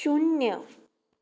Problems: none marked